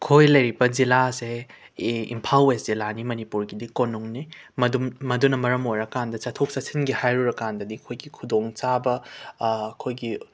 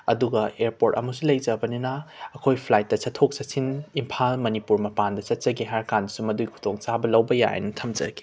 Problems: background sounds at intervals